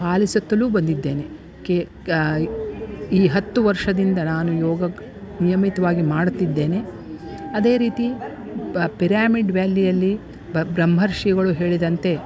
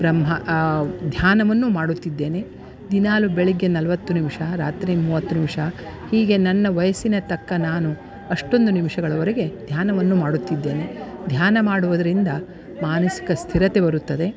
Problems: background sounds at intervals